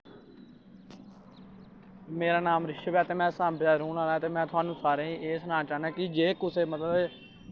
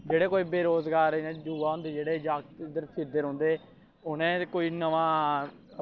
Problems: constant background noise